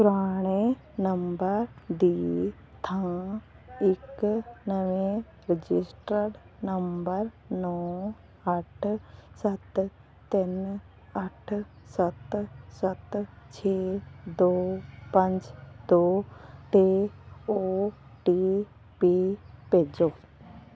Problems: constant background noise